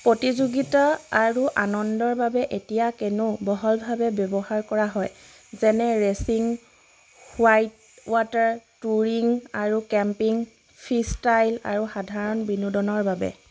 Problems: constant background noise